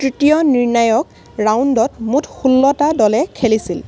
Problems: constant background noise